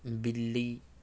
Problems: none marked